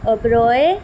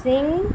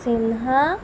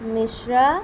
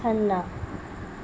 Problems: constant background noise